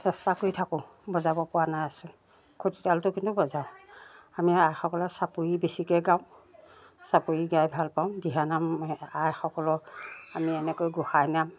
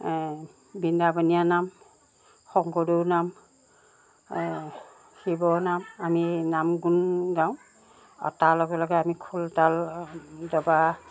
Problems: constant background noise